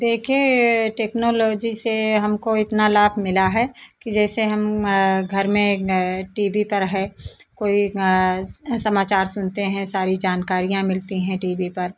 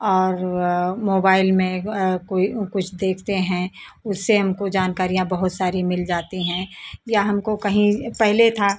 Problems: constant background noise